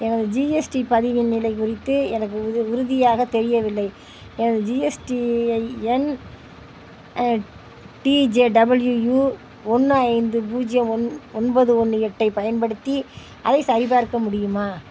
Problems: constant background noise